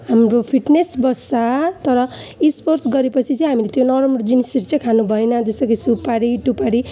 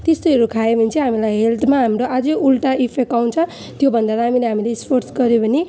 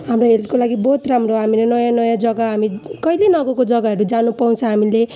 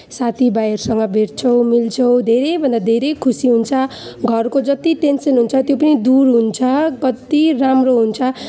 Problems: none marked